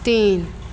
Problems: constant background noise, echo